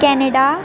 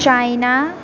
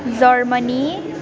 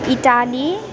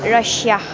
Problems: constant background noise, continuous background conversations